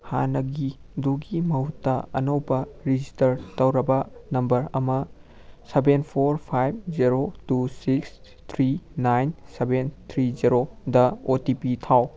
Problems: background sounds at intervals